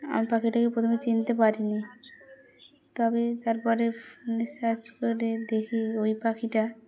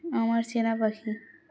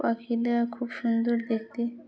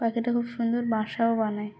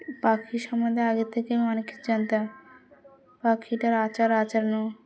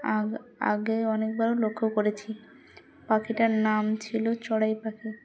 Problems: constant background noise, background conversations at intervals